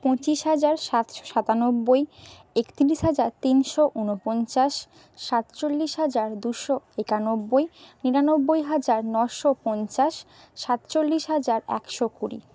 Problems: background sounds at intervals